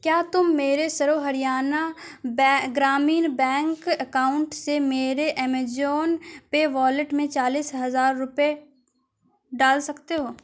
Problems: none marked